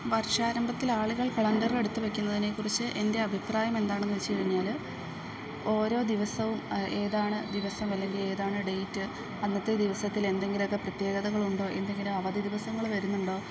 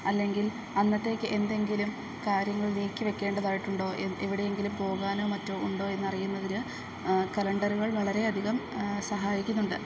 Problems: background sounds at intervals, low volume